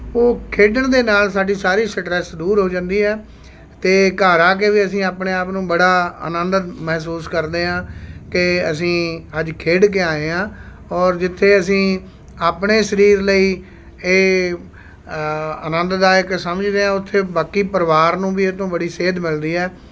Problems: constant background noise